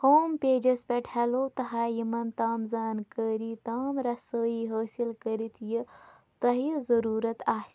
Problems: none marked